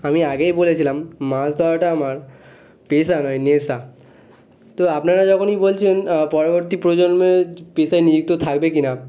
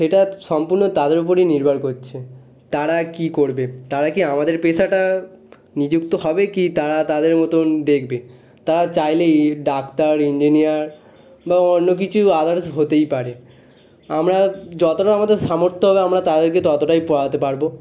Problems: constant background noise, background conversations at intervals